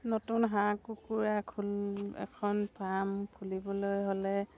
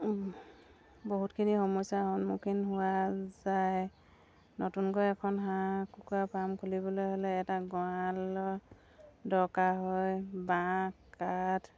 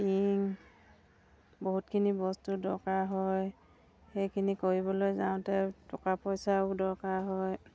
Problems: none marked